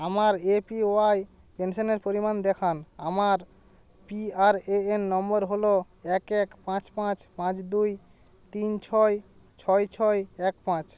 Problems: constant background noise